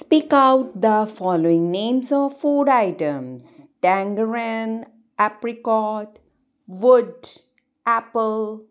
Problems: none marked